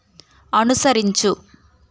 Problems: constant background noise